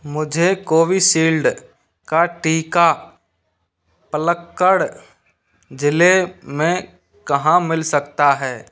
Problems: constant background noise